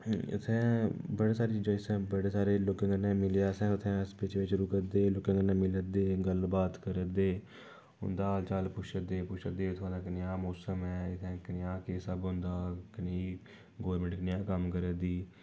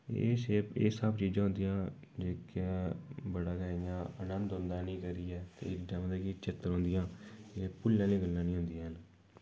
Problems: background sounds at intervals